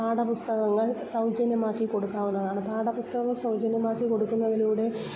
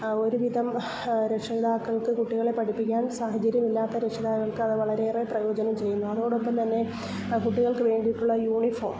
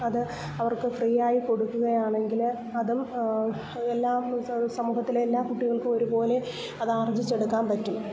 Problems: constant background noise, low volume